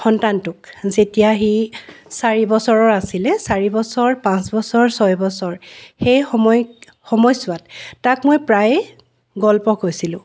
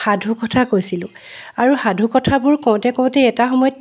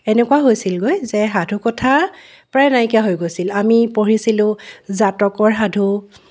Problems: none marked